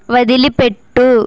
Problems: constant background noise